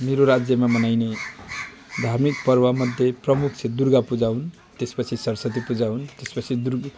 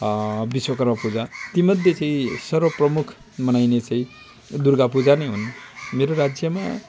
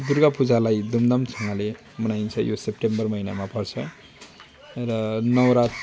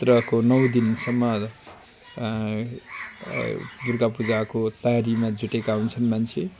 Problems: constant background noise